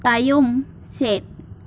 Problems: constant background noise